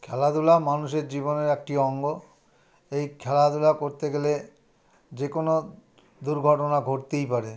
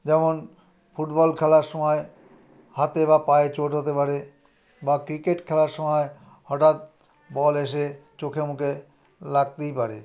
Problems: background conversations at intervals